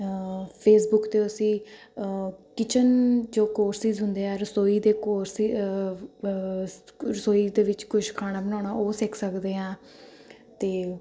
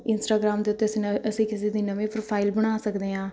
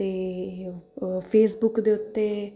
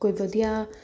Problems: continuous background conversations